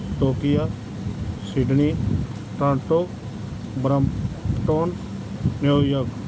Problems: none marked